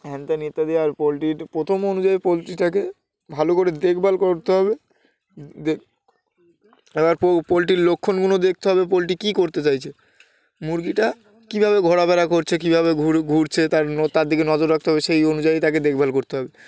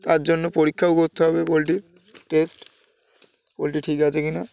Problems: none marked